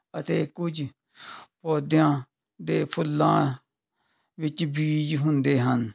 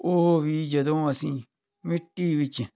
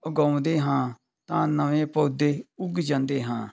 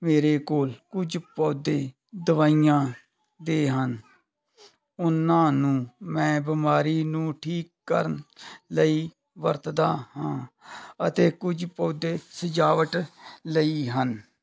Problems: background sounds at intervals